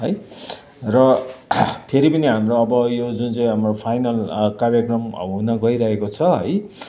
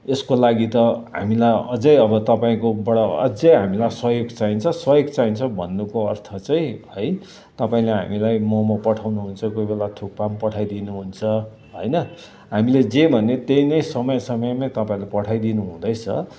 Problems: constant background noise, continuous background conversations